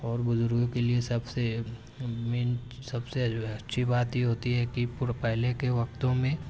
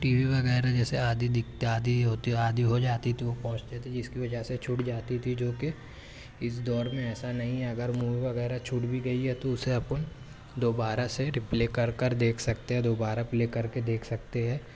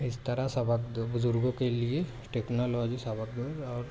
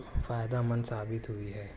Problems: none marked